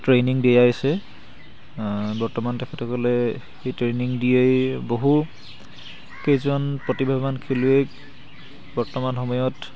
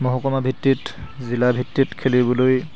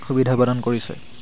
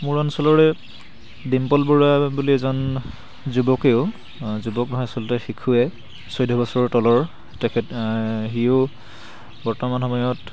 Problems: constant background noise, background conversations at intervals